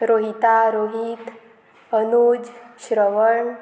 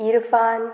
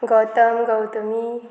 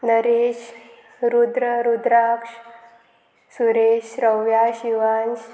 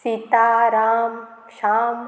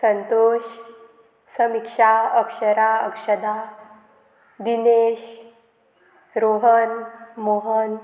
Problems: constant background noise